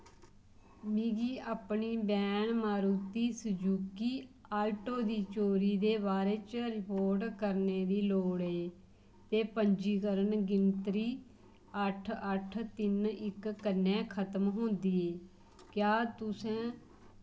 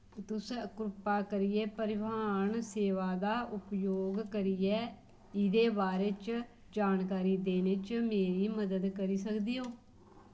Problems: none marked